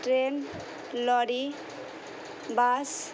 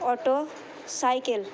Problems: constant background noise, background conversations at intervals